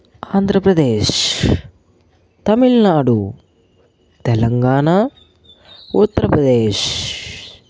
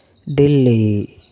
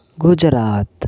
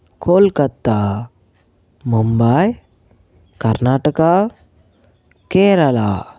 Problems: none marked